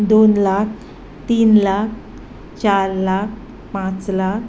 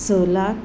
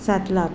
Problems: none marked